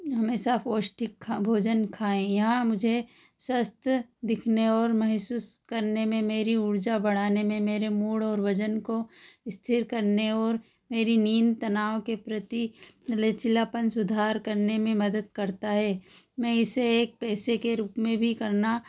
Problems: none marked